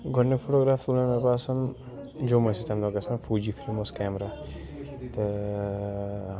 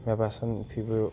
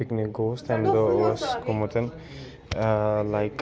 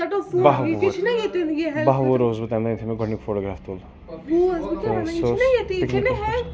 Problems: constant background noise